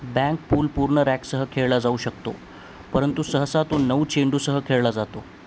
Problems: constant background noise